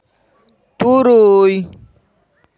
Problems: none marked